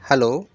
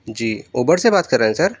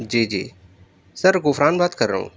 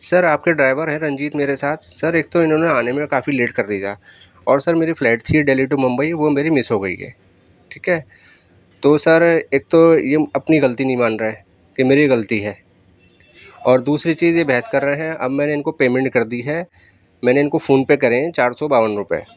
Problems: background sounds at intervals